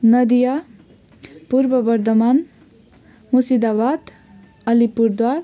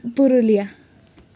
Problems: none marked